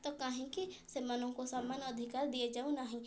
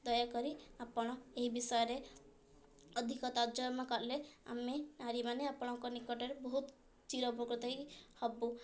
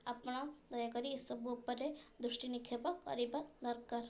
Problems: none marked